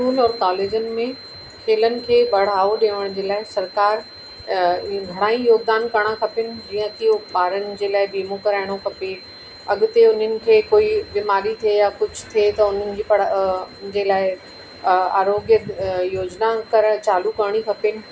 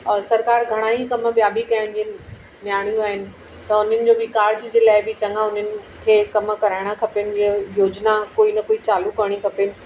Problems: constant background noise, echo